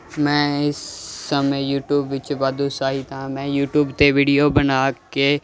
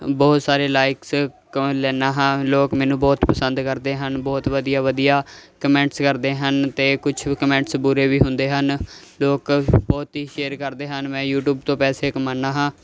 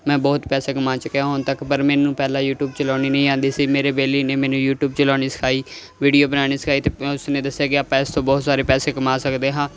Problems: constant background noise